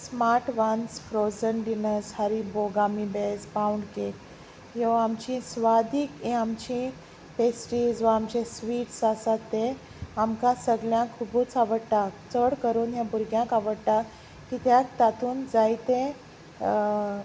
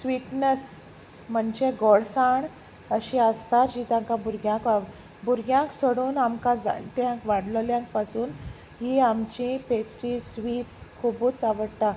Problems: constant background noise